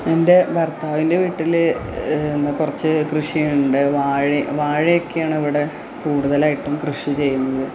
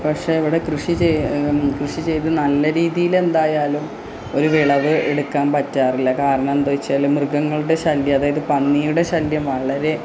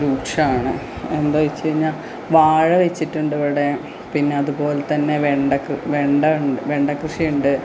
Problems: low volume